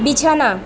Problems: constant background noise, continuous background conversations